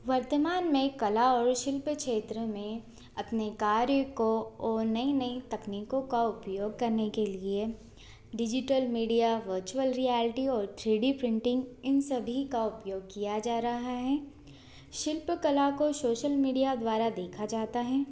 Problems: constant background noise, continuous background conversations